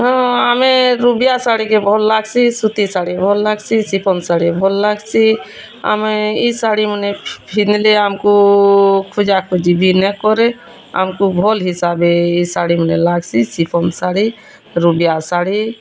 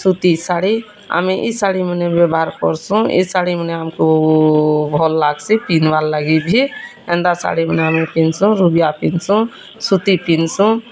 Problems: constant background noise, continuous background conversations